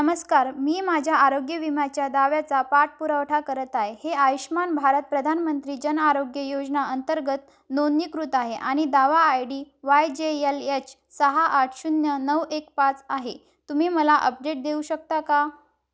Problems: none marked